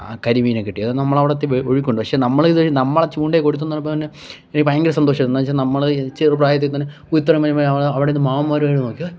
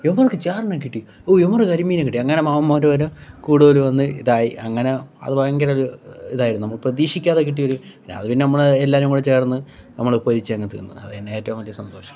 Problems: background sounds at intervals